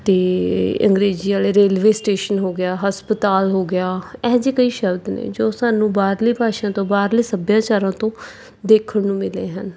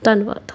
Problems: background sounds at intervals